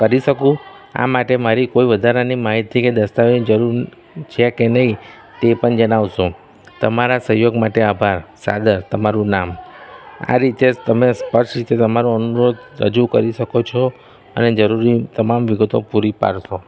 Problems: constant background noise